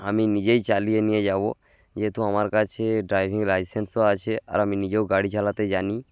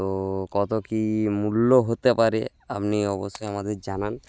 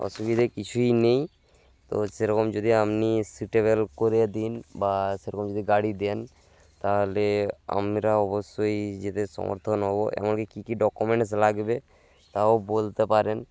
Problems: background sounds at intervals